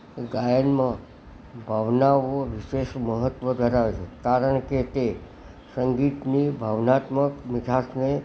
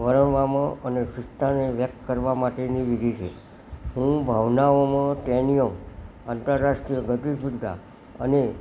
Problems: none marked